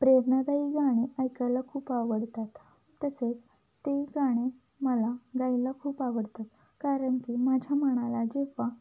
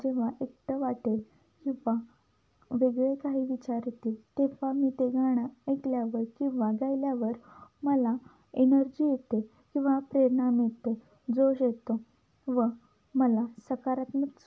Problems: none marked